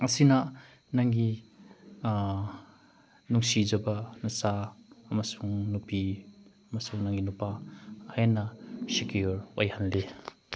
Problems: background sounds at intervals